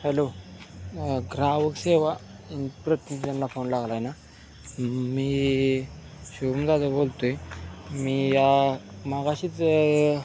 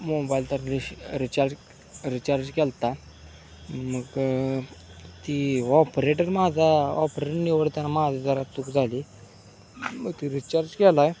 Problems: constant background noise, background conversations at intervals